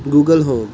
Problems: background sounds at intervals